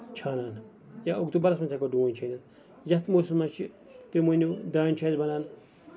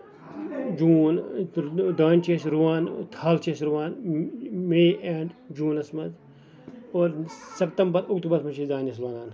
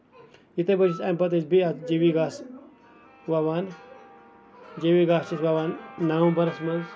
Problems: background sounds at intervals, background conversations at intervals